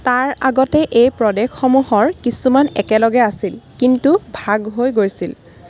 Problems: constant background noise